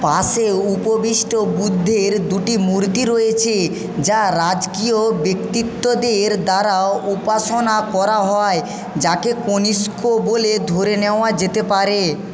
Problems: constant background noise, background conversations at intervals